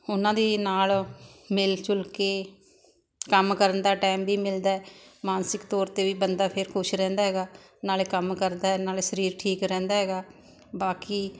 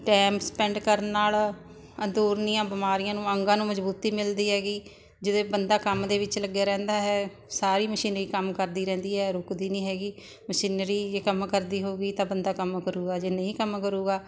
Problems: constant background noise